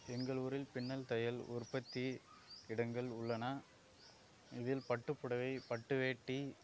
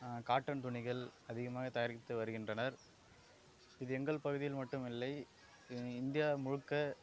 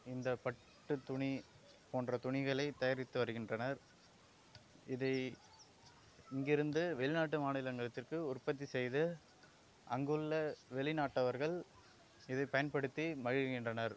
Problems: low volume